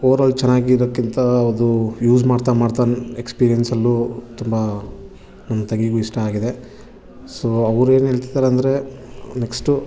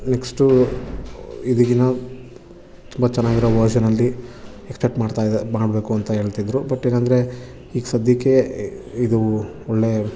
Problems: none marked